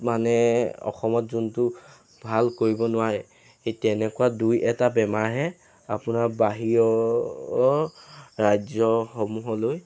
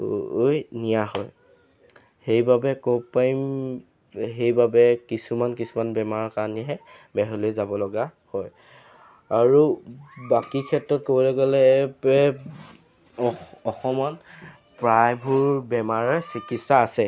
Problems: constant background noise